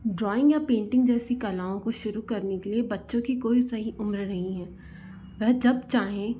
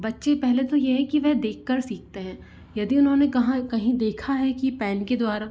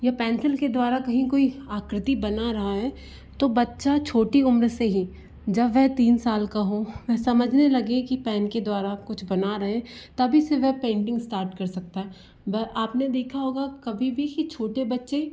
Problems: low volume